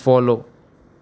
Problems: background sounds at intervals